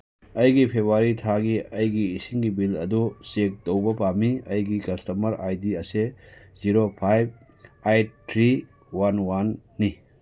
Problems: none marked